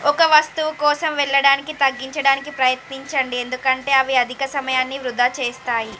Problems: constant background noise